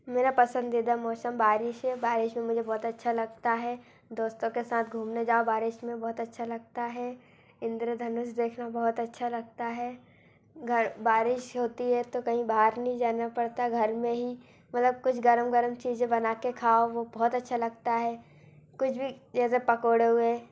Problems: constant background noise